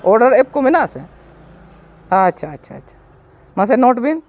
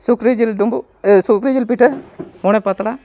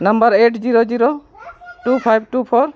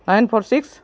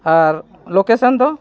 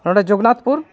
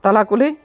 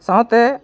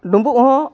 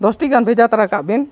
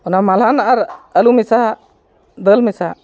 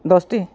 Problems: background sounds at intervals, continuous background conversations